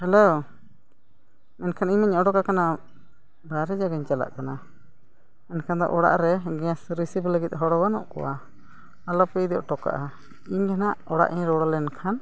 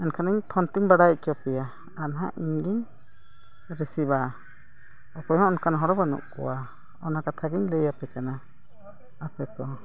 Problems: background sounds at intervals, background conversations at intervals